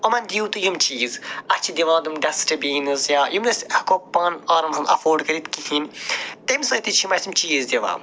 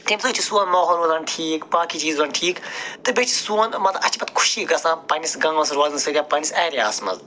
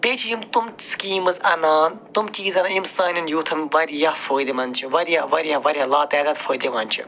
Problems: none marked